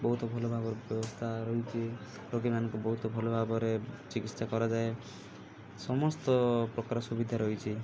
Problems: low volume